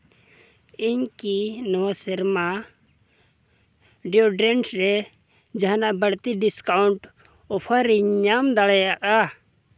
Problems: none marked